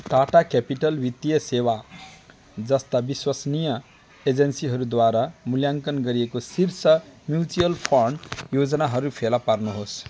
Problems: background sounds at intervals, continuous background conversations